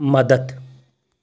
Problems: constant background noise